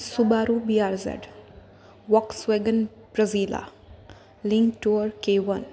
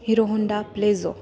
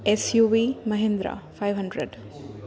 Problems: none marked